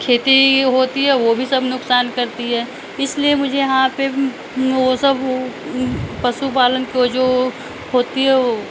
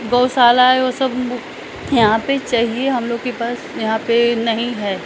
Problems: background sounds at intervals, background conversations at intervals